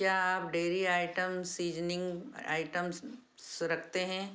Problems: background sounds at intervals